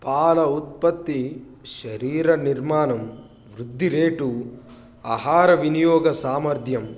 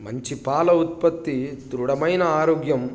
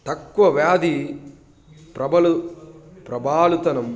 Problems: constant background noise, background conversations at intervals